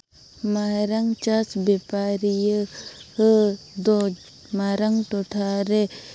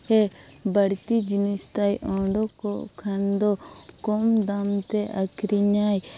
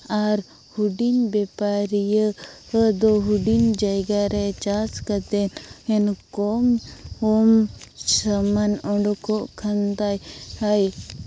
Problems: none marked